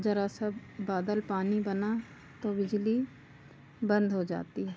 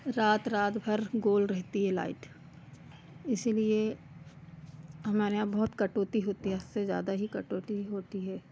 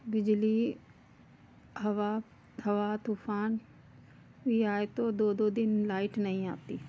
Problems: none marked